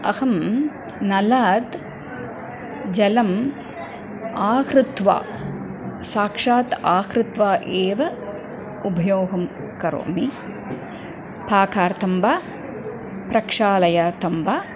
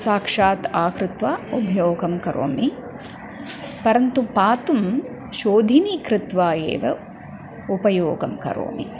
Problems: background sounds at intervals